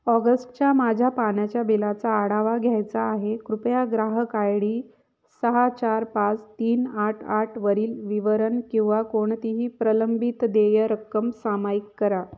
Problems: none marked